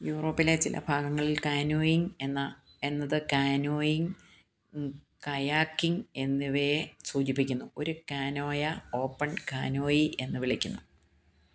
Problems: low volume